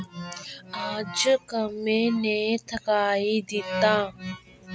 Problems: constant background noise